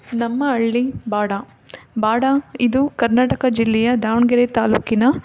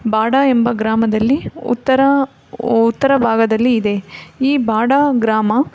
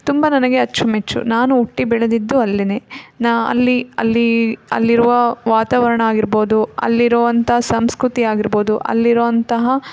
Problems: background sounds at intervals